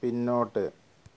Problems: constant background noise